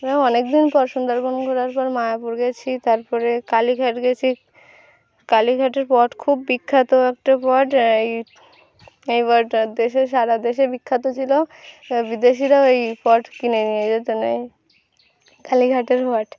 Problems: background sounds at intervals